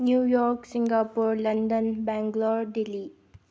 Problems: low volume